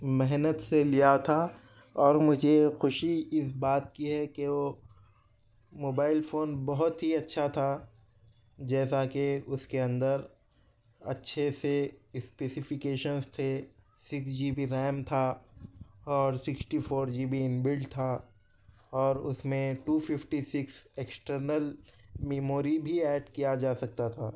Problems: none marked